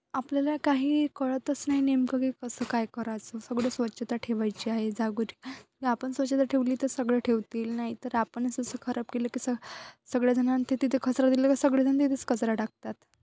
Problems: constant background noise